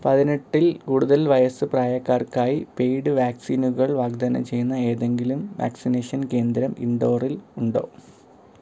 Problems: low volume